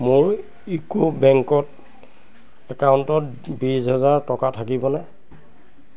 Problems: none marked